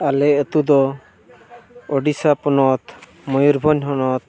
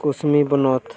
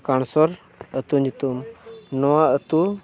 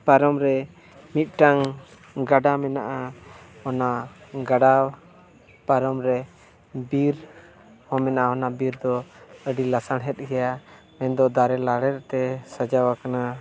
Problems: background sounds at intervals